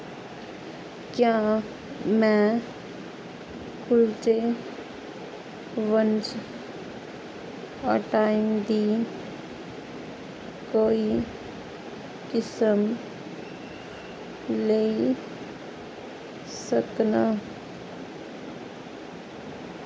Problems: constant background noise